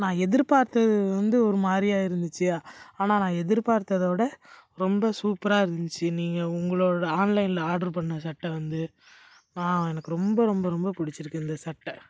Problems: background sounds at intervals